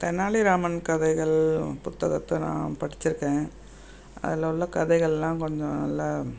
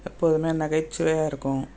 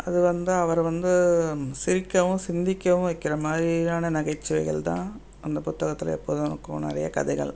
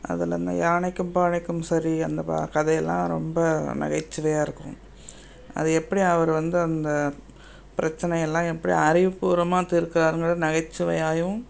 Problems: constant background noise